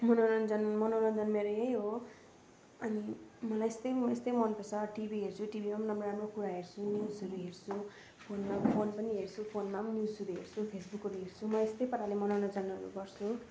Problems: constant background noise